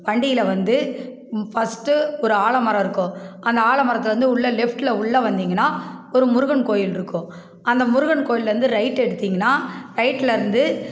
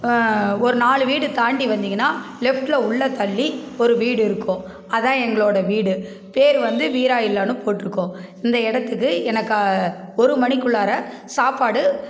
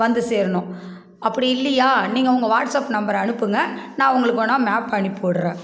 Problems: constant background noise